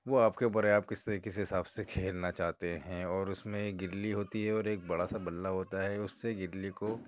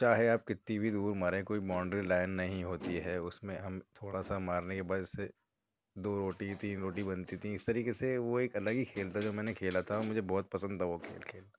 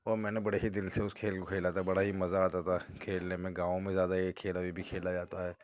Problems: background sounds at intervals, low volume